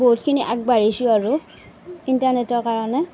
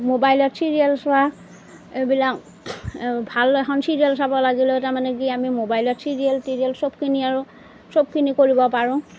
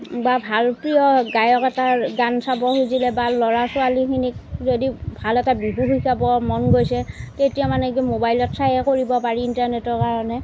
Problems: background sounds at intervals